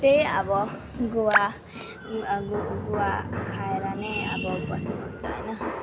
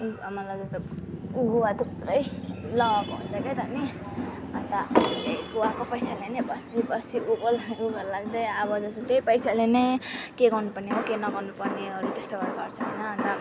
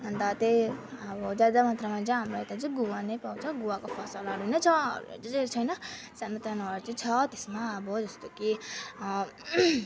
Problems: constant background noise